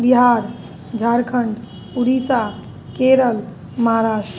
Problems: none marked